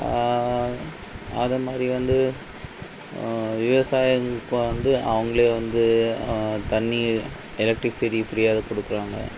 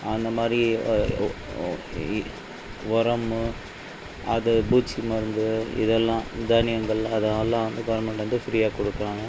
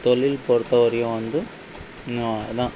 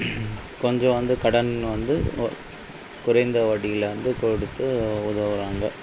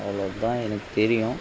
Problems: background sounds at intervals